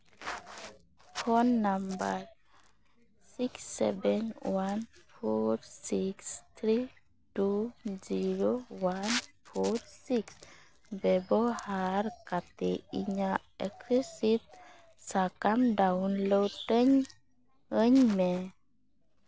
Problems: none marked